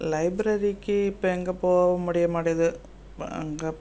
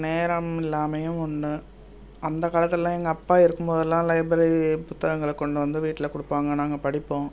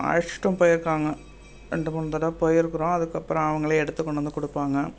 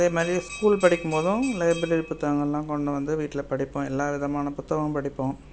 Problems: constant background noise